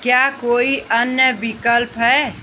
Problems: constant background noise